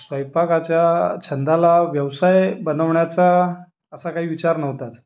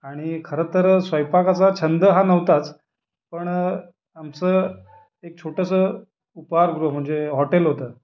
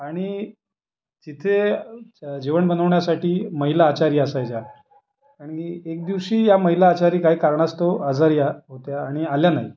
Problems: background sounds at intervals, background conversations at intervals